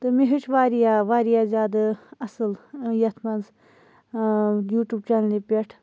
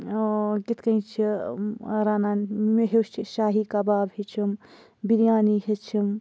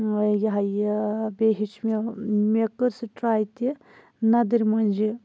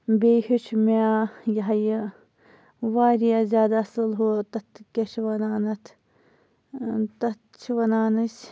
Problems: none marked